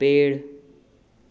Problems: none marked